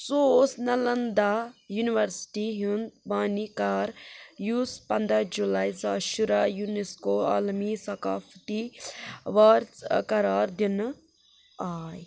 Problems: constant background noise